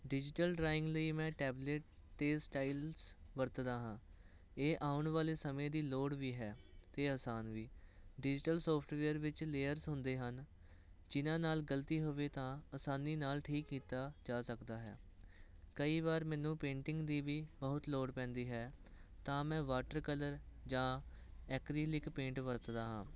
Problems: none marked